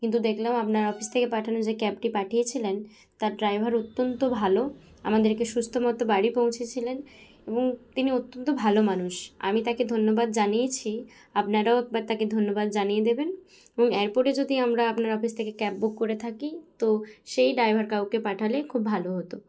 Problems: background sounds at intervals